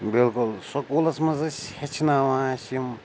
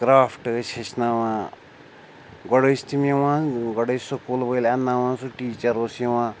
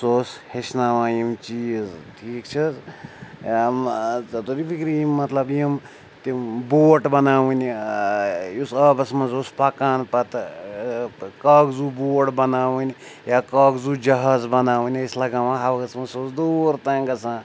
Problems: constant background noise